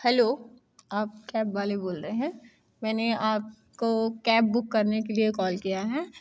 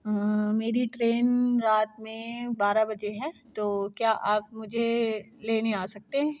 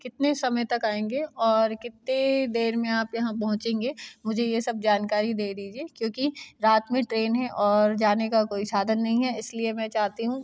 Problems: constant background noise